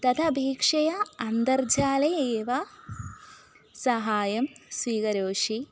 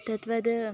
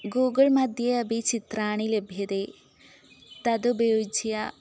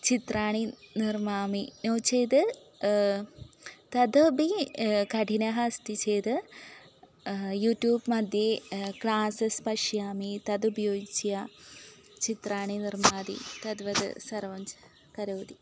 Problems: background sounds at intervals